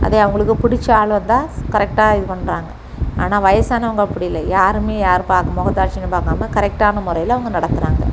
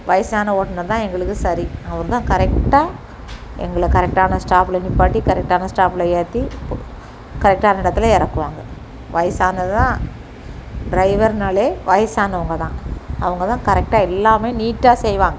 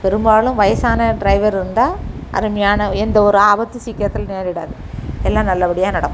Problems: constant background noise